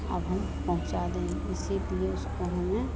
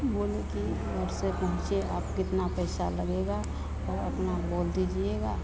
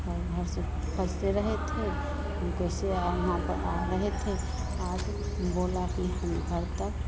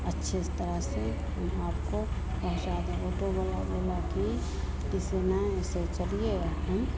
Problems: none marked